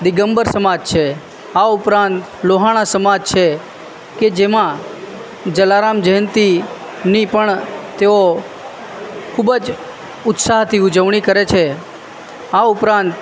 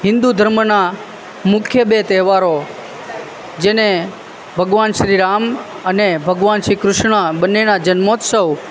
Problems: constant background noise